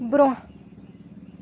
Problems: background sounds at intervals